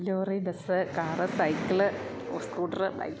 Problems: background sounds at intervals